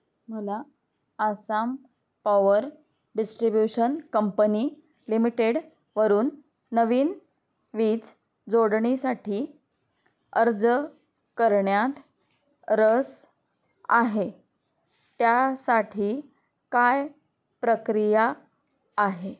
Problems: none marked